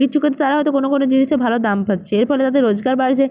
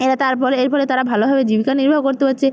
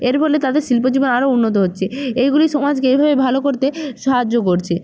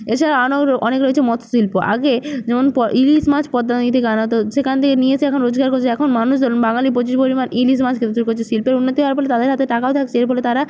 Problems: none marked